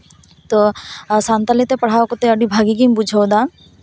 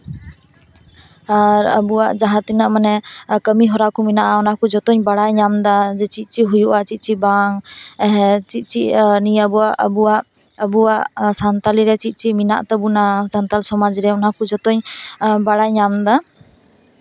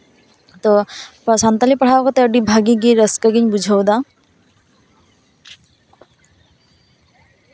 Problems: none marked